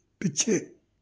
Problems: background sounds at intervals